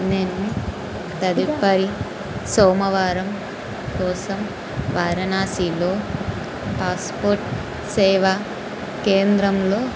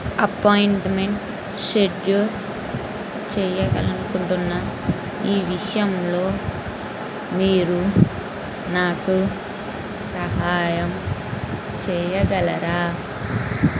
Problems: constant background noise